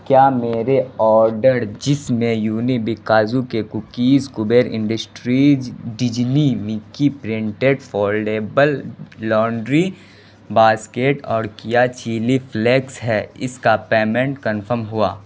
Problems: constant background noise